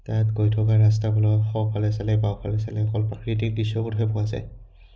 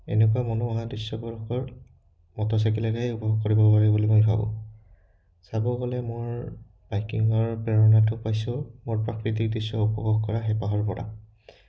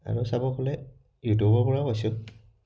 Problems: none marked